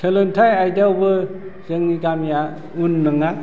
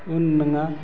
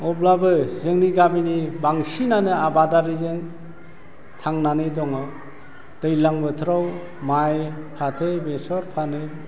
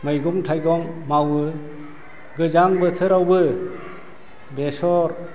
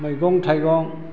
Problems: low volume